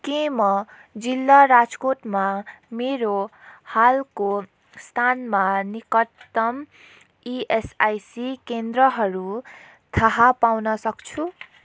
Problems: none marked